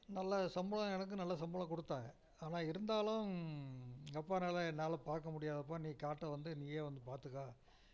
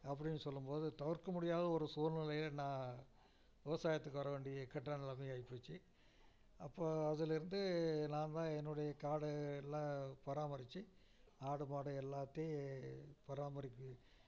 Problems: none marked